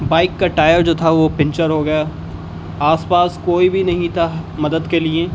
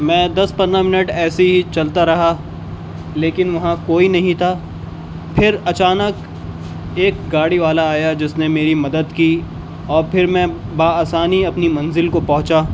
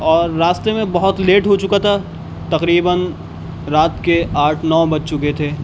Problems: constant background noise